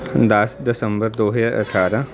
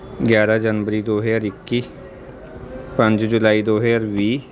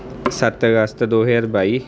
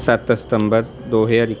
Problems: constant background noise, background conversations at intervals